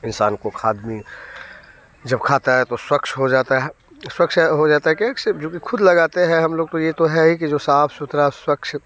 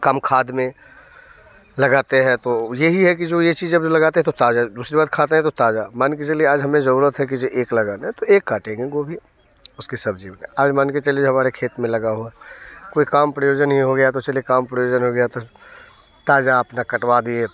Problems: background conversations at intervals